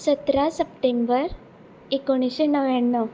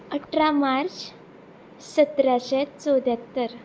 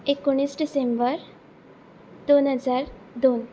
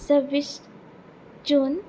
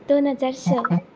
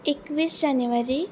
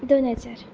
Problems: constant background noise